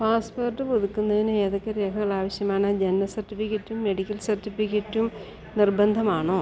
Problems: constant background noise